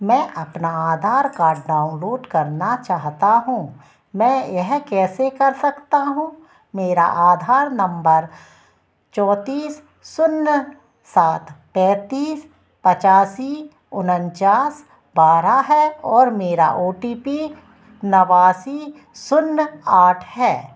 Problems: none marked